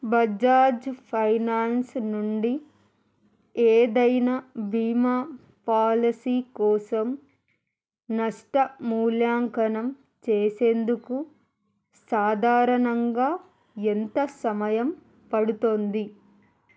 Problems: none marked